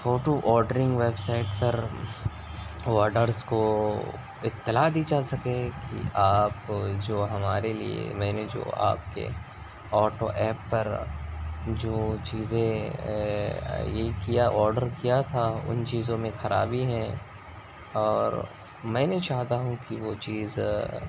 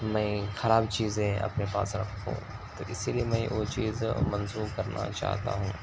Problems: constant background noise